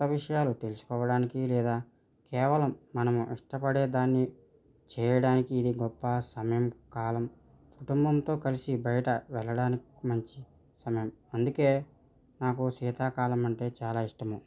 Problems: none marked